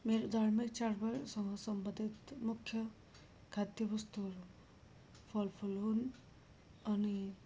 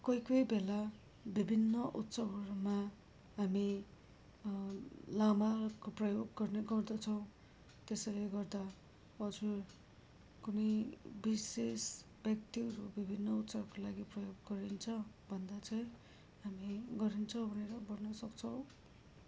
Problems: low volume